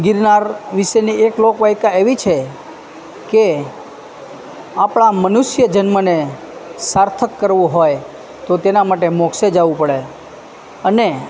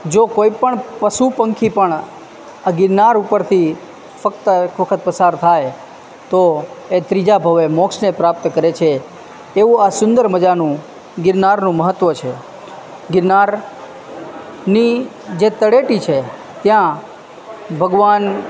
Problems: constant background noise